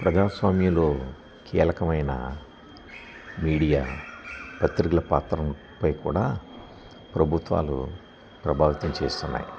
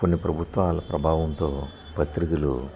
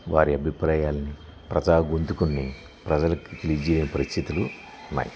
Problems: background sounds at intervals